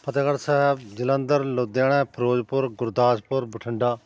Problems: constant background noise